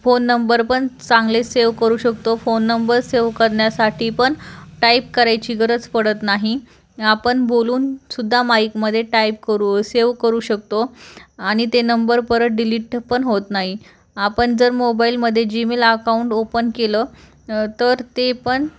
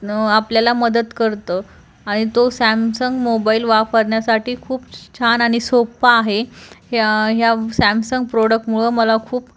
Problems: constant background noise